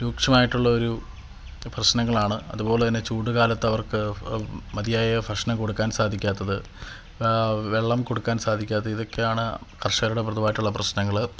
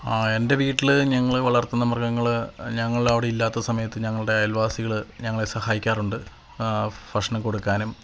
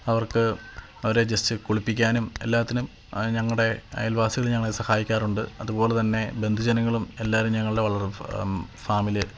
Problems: constant background noise